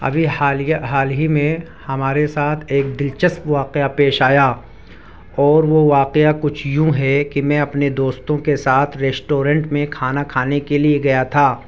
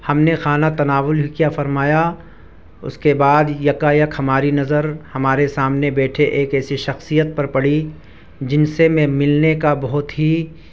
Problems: none marked